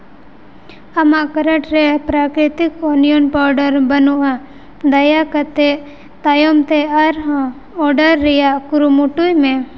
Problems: constant background noise, echo